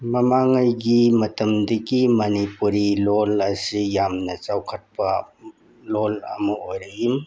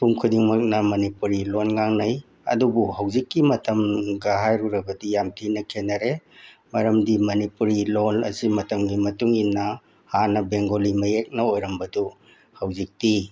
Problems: background sounds at intervals